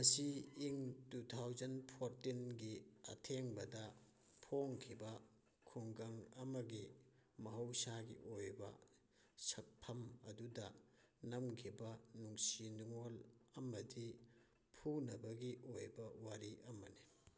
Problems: none marked